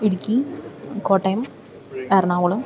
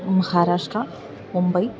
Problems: background sounds at intervals, low volume